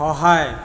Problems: background sounds at intervals